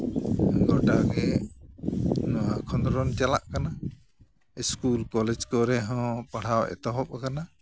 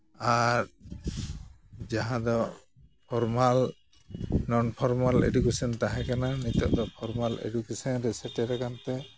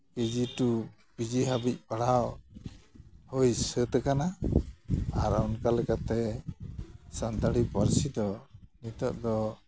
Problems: background sounds at intervals